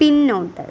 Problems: none marked